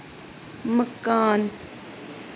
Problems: constant background noise